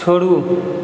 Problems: constant background noise